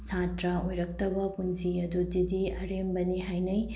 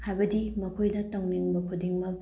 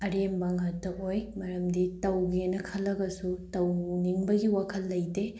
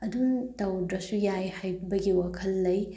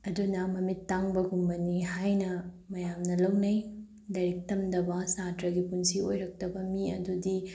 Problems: none marked